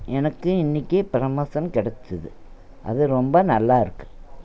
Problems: none marked